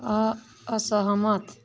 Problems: none marked